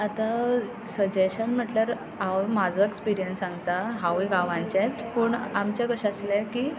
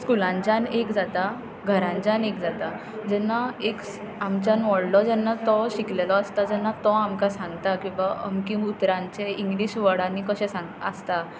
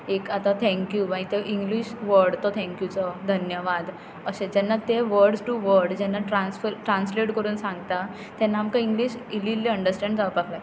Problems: constant background noise